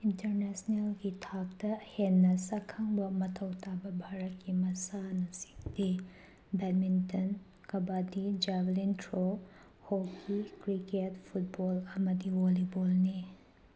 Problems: background sounds at intervals